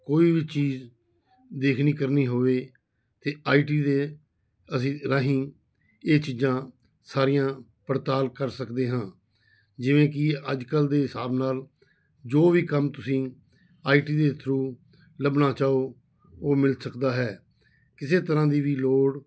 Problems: background sounds at intervals